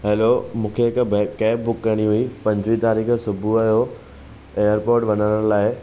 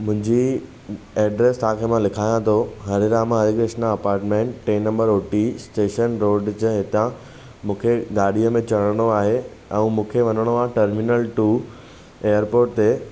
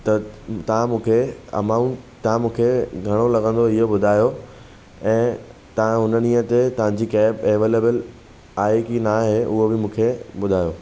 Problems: none marked